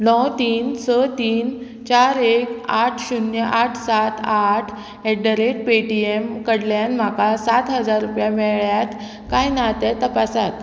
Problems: constant background noise